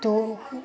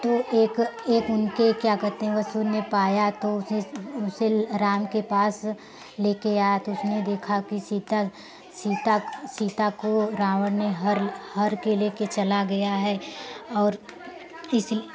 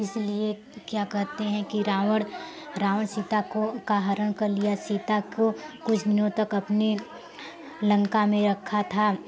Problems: none marked